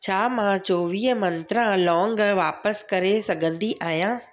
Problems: none marked